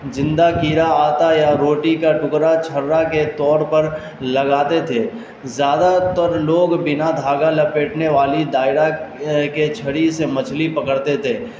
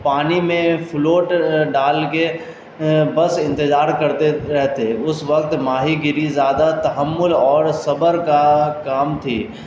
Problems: constant background noise